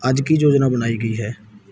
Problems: background sounds at intervals